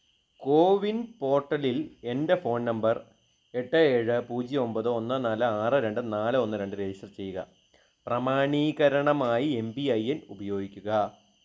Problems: none marked